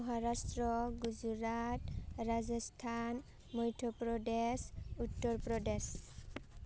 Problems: low volume